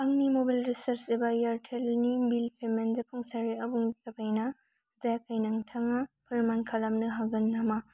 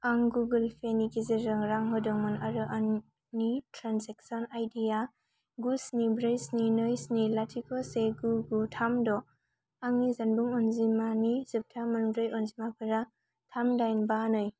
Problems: constant background noise